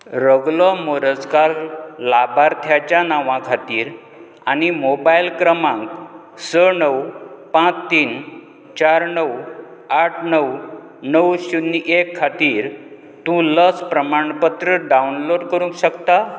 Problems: constant background noise